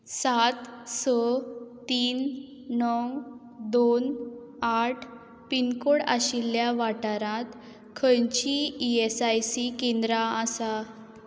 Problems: background sounds at intervals